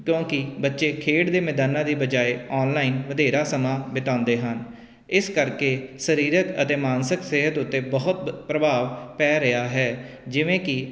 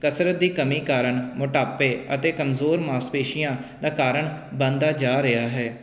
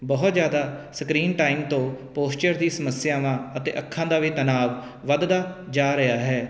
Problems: none marked